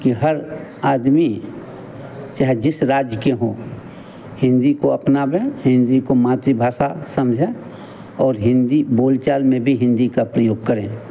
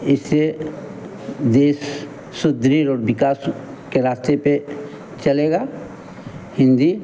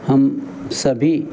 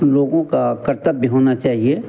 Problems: constant background noise